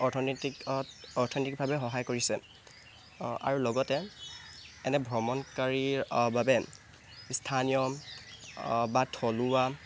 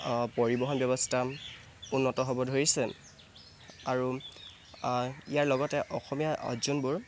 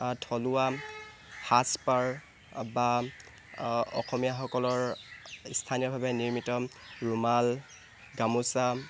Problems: constant background noise